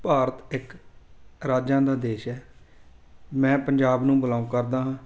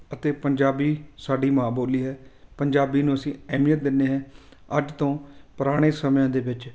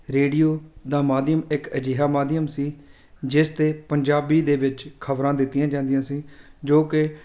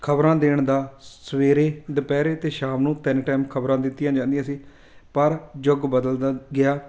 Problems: constant background noise